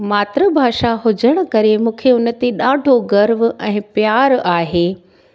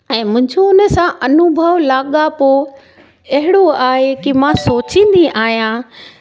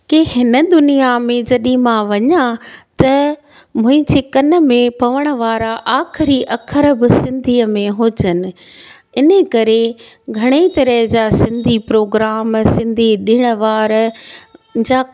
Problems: none marked